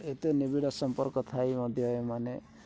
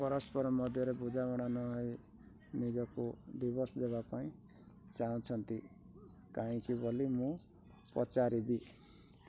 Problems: constant background noise